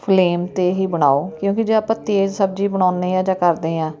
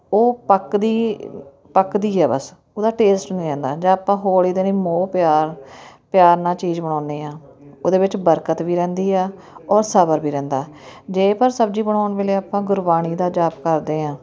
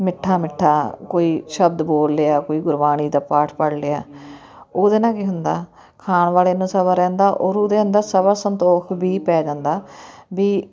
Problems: continuous background conversations